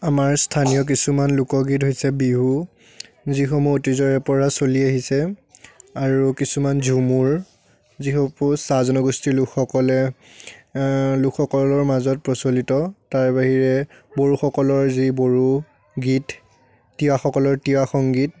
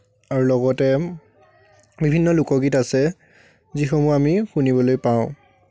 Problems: none marked